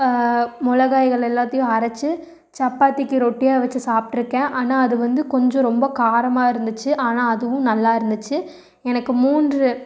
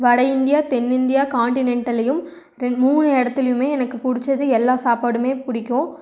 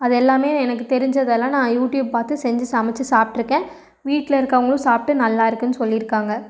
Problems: none marked